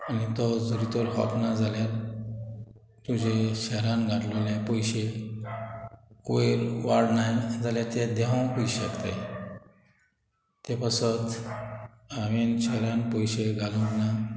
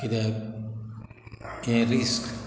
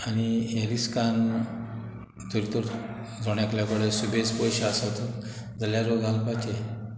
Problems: background sounds at intervals